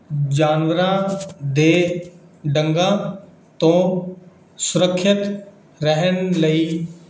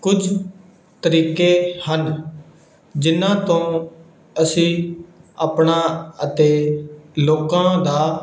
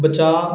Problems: background sounds at intervals